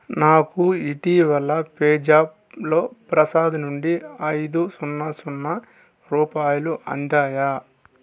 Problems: constant background noise